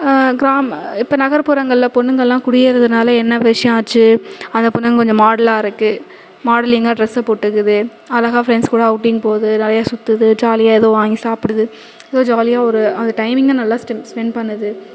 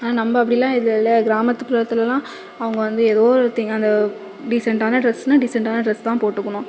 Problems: constant background noise